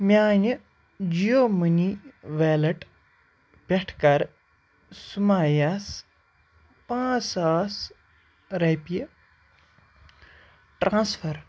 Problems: none marked